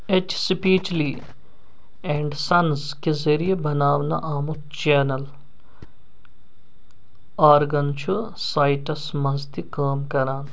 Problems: none marked